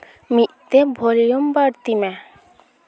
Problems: constant background noise, continuous background conversations